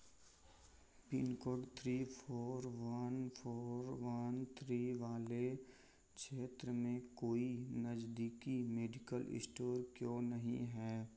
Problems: constant background noise